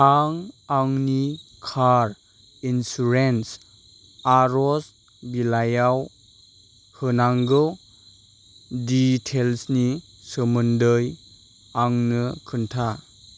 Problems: none marked